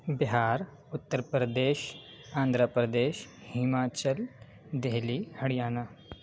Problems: constant background noise